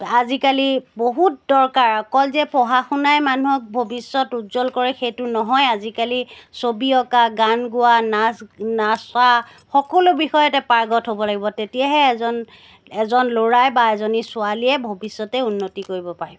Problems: background sounds at intervals